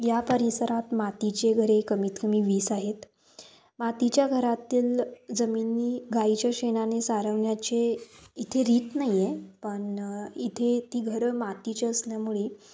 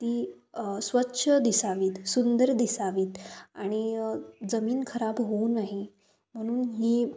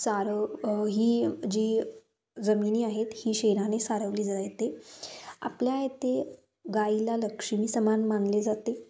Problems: constant background noise, continuous background conversations